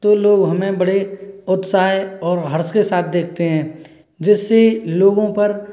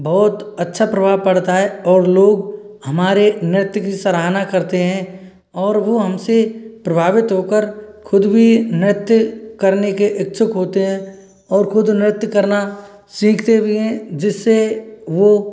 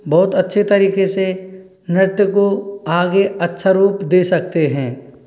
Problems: none marked